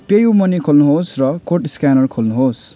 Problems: none marked